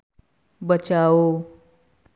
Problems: none marked